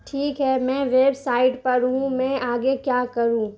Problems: constant background noise